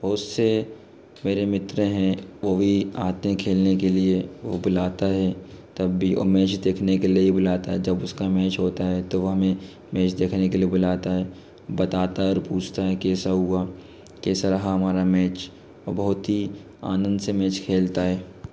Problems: constant background noise